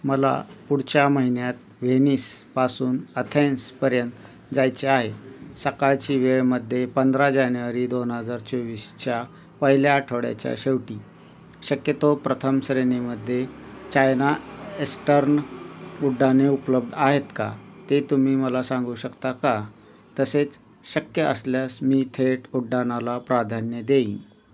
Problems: constant background noise